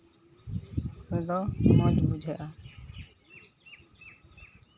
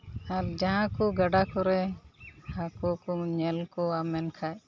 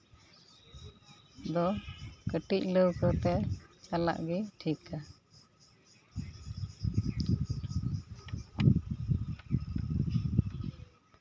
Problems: constant background noise